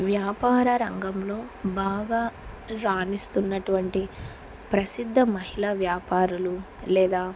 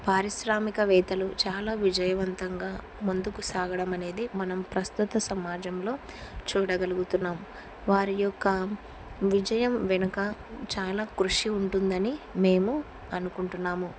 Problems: constant background noise